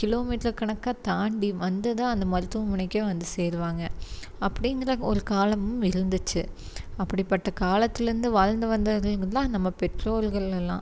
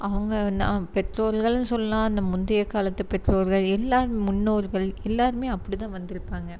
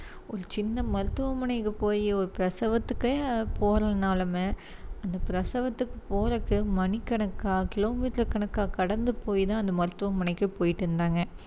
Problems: constant background noise